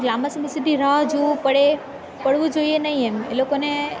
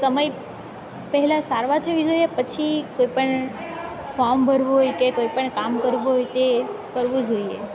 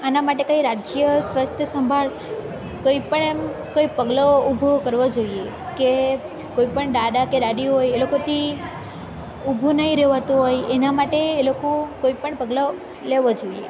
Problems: constant background noise